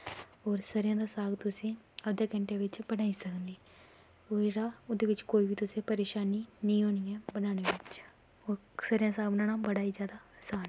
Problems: constant background noise